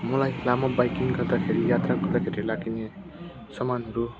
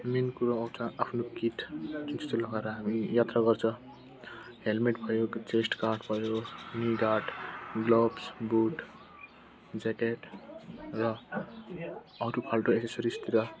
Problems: constant background noise, continuous background conversations